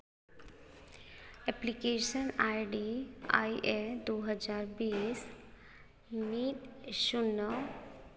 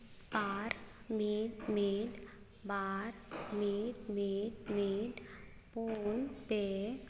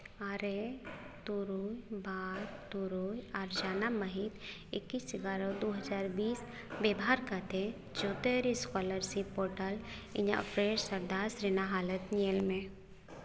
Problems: background sounds at intervals, echo